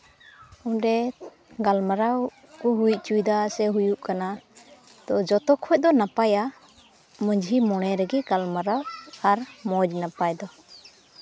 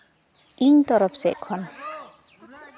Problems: constant background noise, continuous background conversations